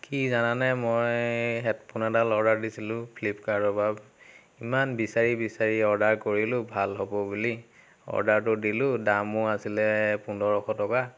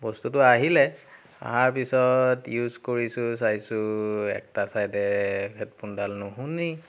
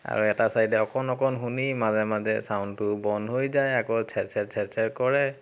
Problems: constant background noise